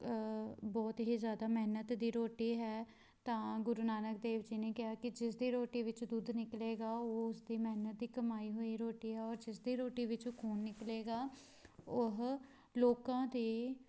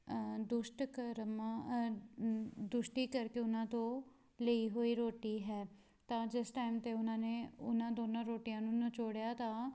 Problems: background sounds at intervals